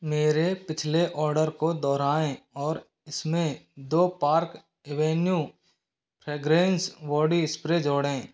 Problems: constant background noise